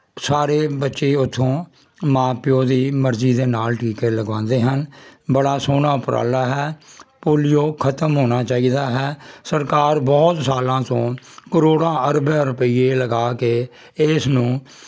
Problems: constant background noise